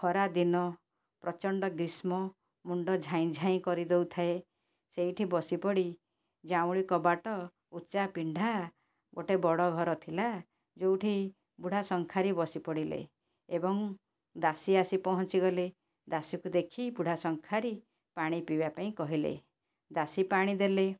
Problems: none marked